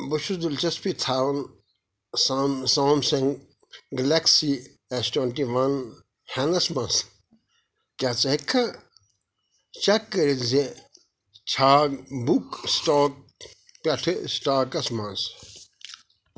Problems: background sounds at intervals, background conversations at intervals